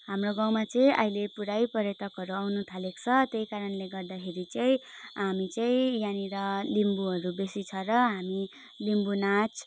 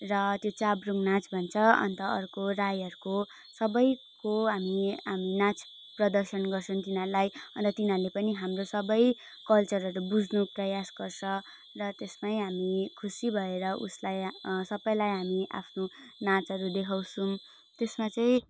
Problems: none marked